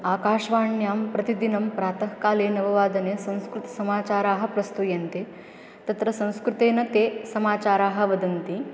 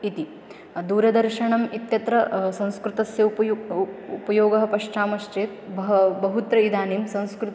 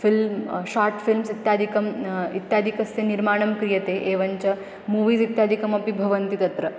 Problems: background sounds at intervals